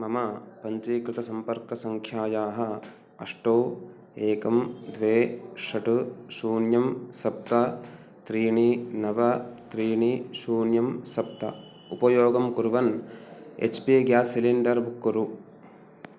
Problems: none marked